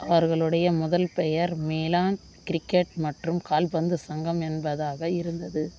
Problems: constant background noise